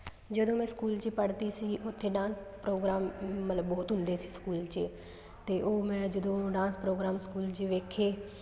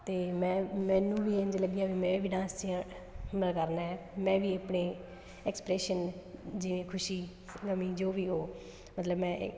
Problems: background sounds at intervals